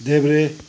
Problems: none marked